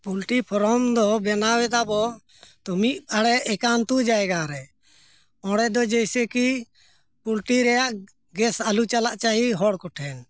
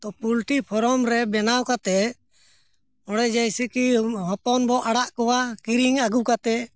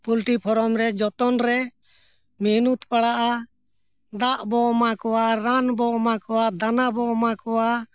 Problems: none marked